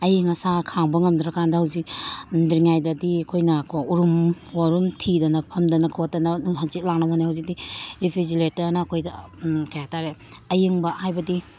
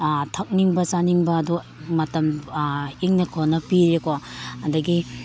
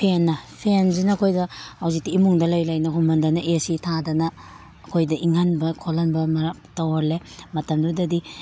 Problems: background sounds at intervals